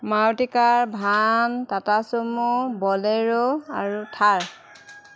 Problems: constant background noise, background conversations at intervals